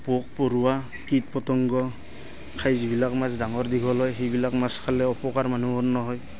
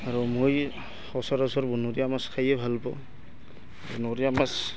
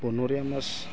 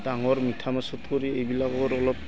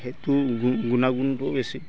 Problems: constant background noise, continuous background conversations